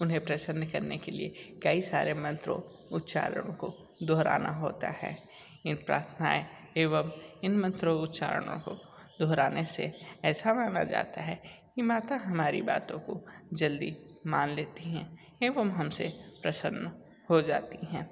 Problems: constant background noise